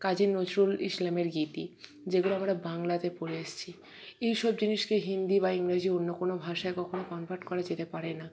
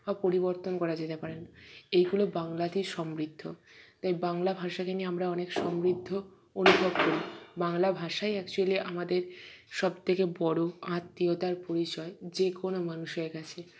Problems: none marked